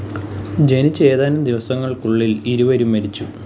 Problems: constant background noise